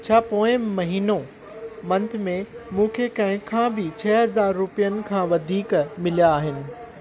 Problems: constant background noise